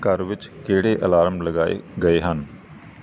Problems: background sounds at intervals